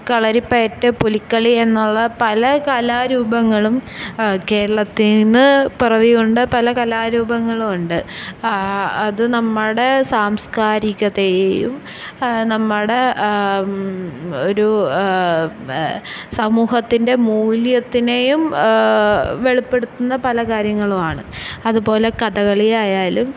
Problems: none marked